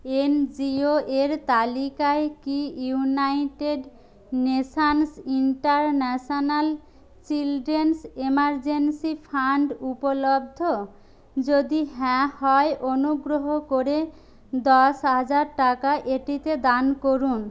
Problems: none marked